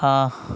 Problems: none marked